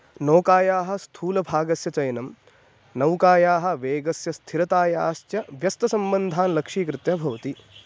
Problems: background sounds at intervals